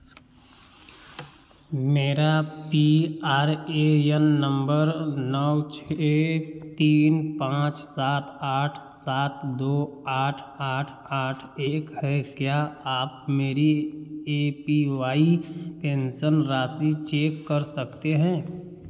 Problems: constant background noise, echo